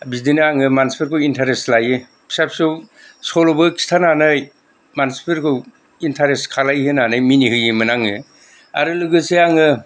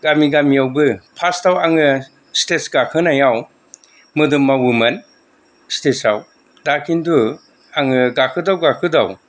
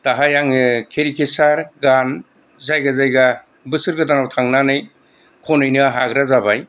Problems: none marked